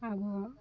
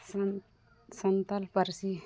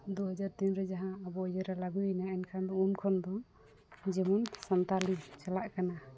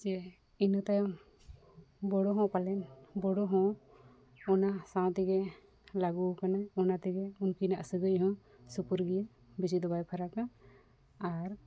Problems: background sounds at intervals